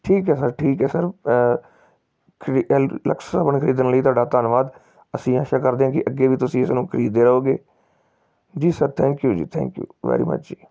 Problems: none marked